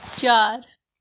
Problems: background sounds at intervals